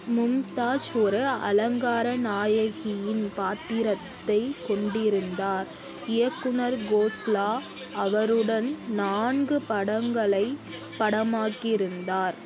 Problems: background sounds at intervals